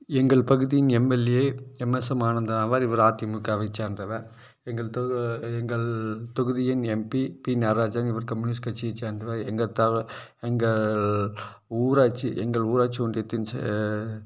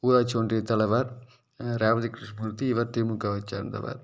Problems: none marked